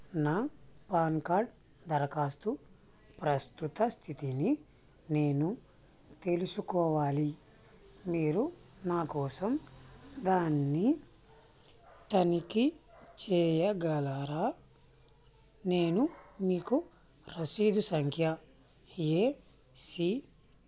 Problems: constant background noise